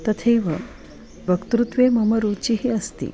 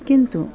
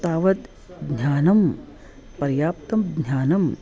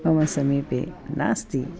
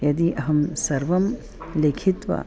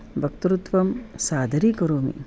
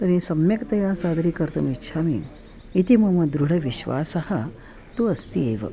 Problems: constant background noise, continuous background conversations